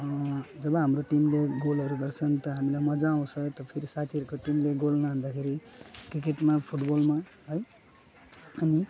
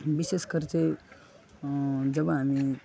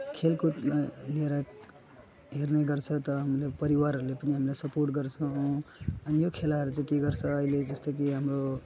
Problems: background sounds at intervals